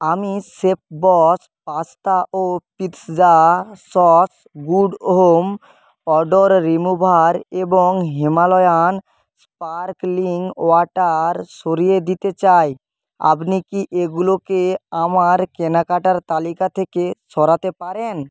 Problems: constant background noise